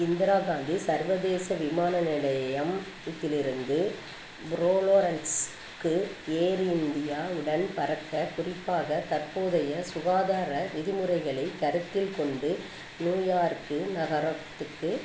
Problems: constant background noise